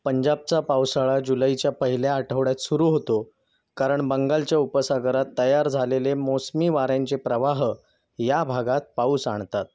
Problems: none marked